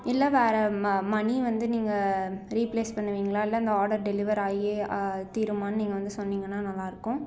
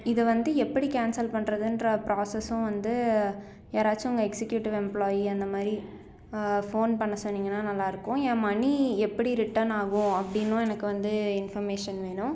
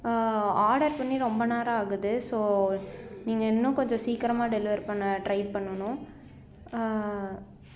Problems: background conversations at intervals